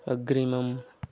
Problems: none marked